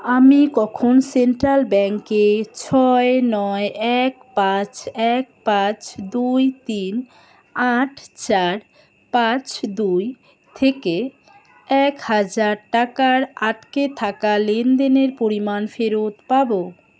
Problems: constant background noise, continuous background conversations